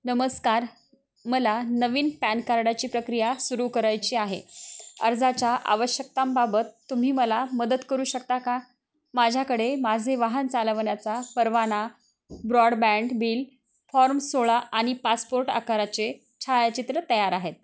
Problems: constant background noise, background conversations at intervals